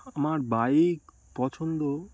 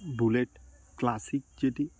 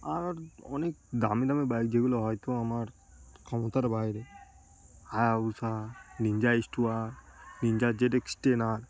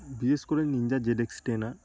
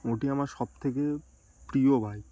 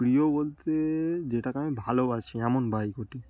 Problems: background sounds at intervals, continuous background conversations